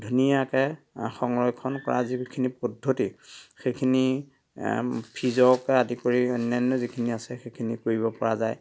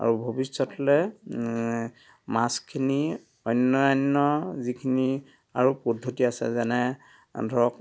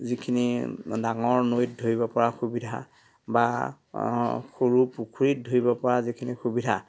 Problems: none marked